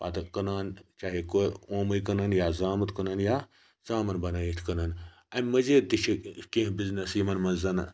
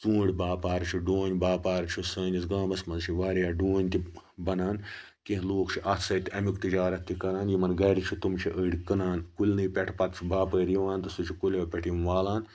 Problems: background sounds at intervals